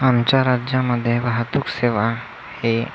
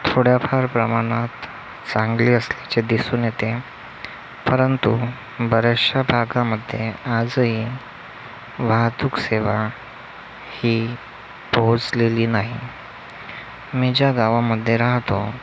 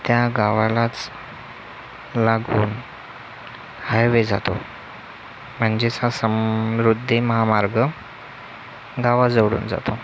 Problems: none marked